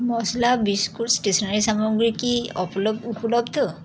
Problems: constant background noise, continuous background conversations